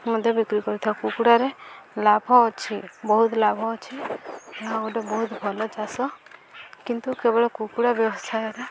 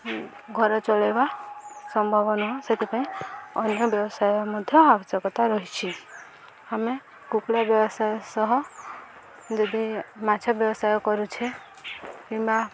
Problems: constant background noise